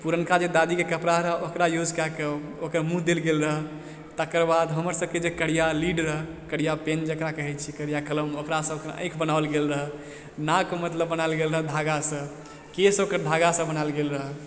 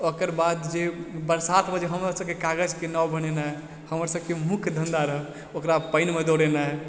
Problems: background conversations at intervals